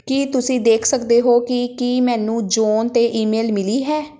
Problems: background sounds at intervals